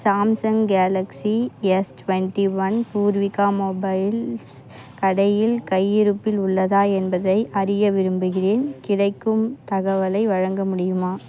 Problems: background sounds at intervals